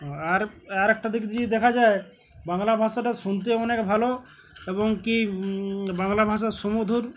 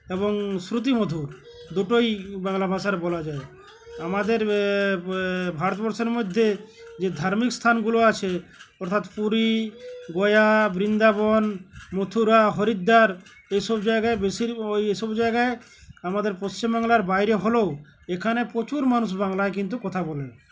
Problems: none marked